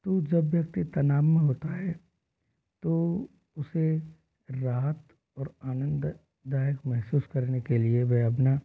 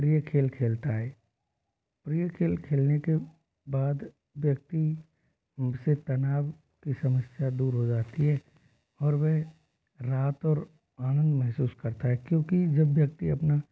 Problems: low volume